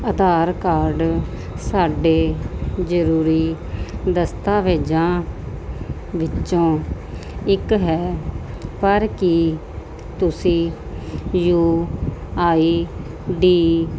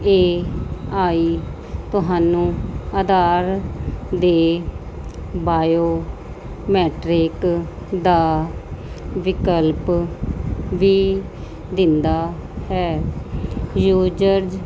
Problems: constant background noise